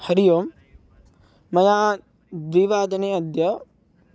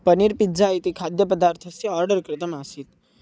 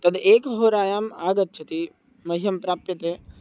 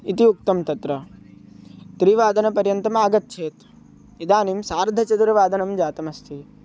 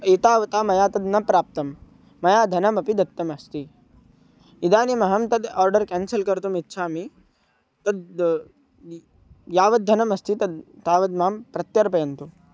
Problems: none marked